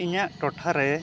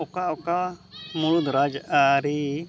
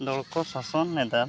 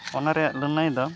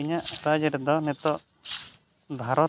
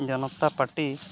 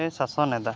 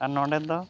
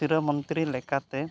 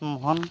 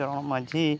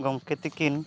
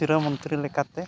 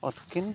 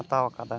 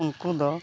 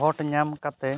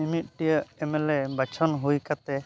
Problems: continuous background conversations